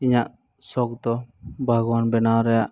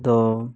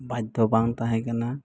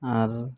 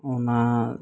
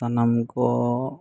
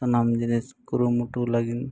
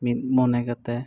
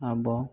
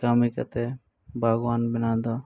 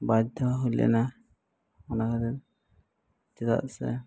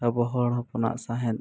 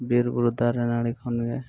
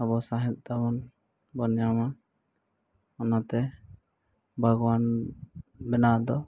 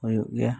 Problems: low volume